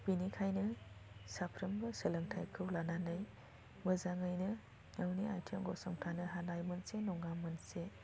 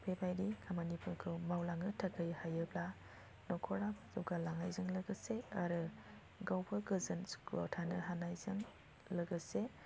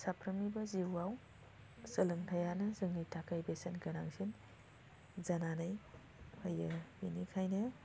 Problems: low volume